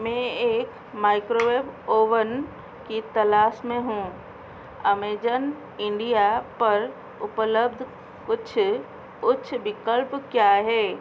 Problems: constant background noise